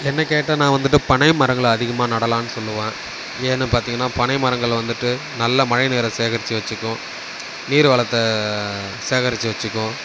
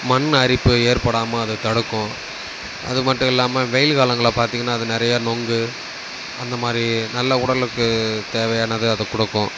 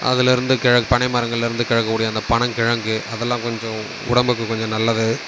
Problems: constant background noise